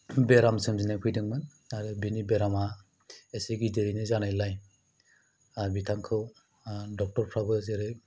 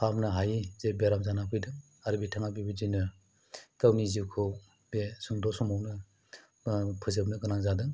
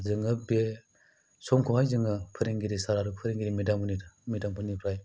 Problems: low volume